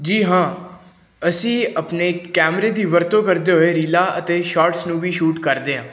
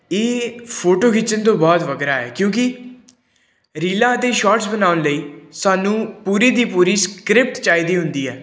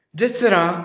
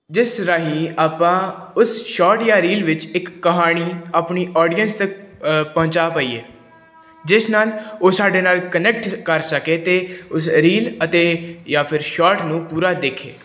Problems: background sounds at intervals